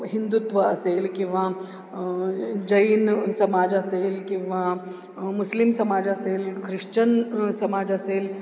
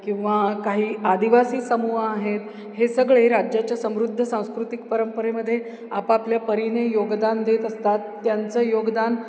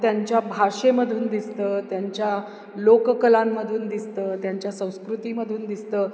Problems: none marked